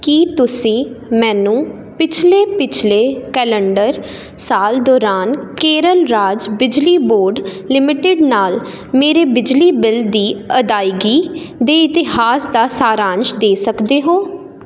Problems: constant background noise